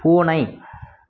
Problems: none marked